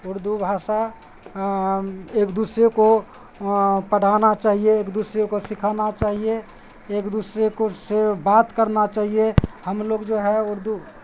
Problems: constant background noise